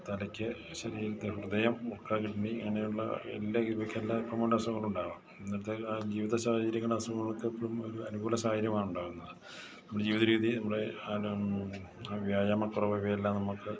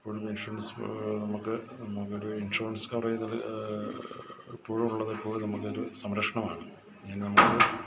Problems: background conversations at intervals, low volume